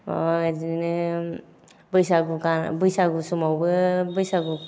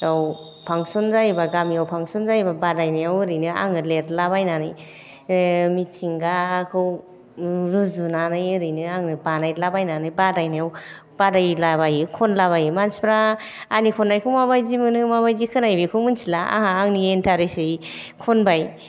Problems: none marked